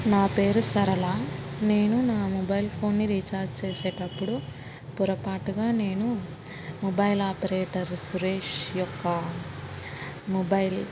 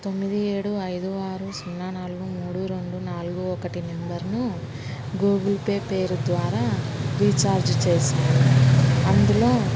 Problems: constant background noise